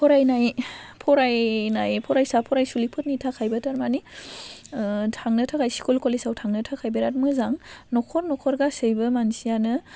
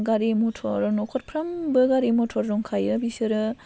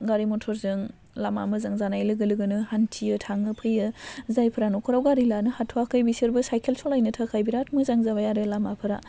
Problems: constant background noise